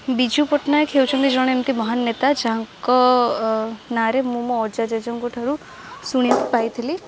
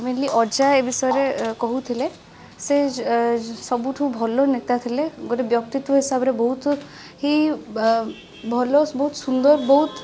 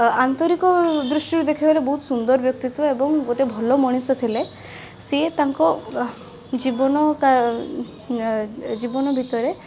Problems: constant background noise